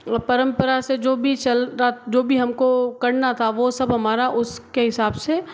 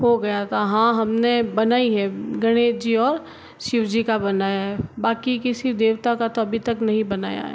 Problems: background sounds at intervals